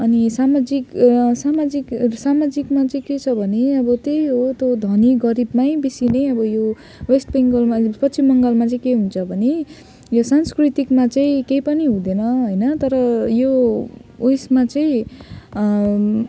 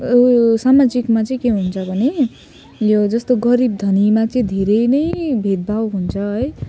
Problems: none marked